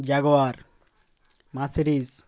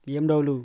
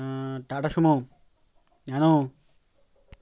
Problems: constant background noise